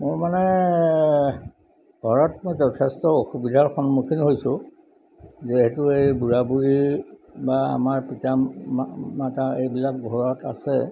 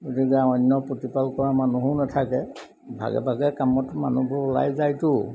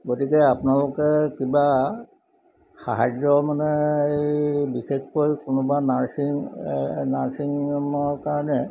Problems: background sounds at intervals